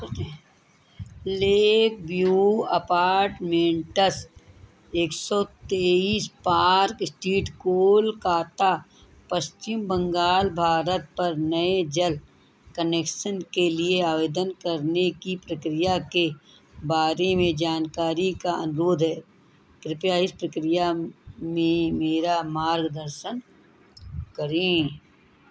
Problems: none marked